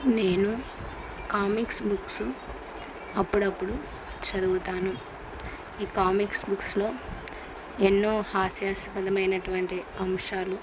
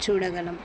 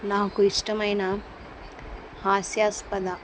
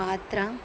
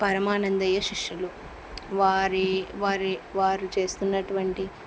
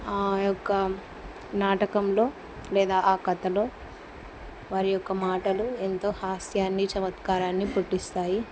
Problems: none marked